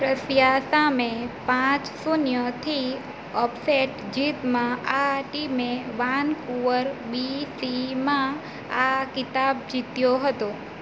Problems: constant background noise